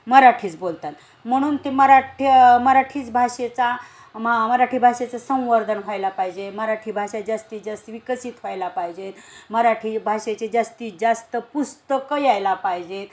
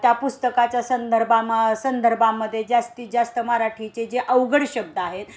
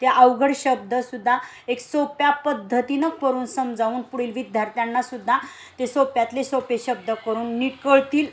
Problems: background sounds at intervals